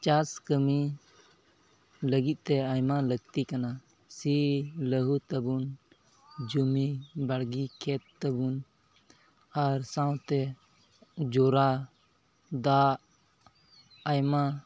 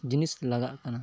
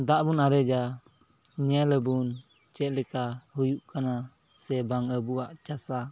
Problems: none marked